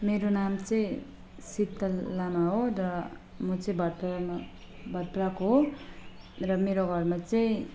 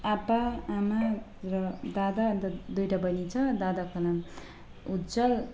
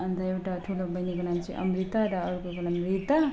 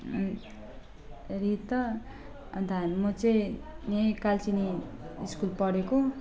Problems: constant background noise